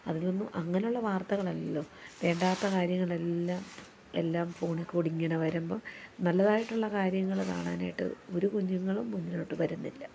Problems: background sounds at intervals